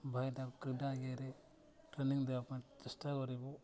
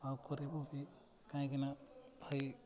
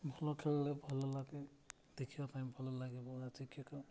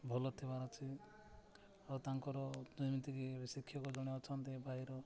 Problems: constant background noise, continuous background conversations